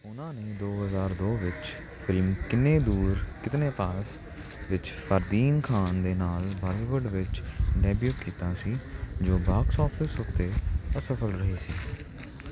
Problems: none marked